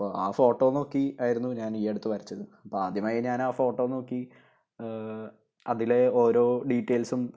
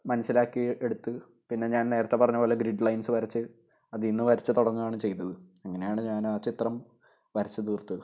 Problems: none marked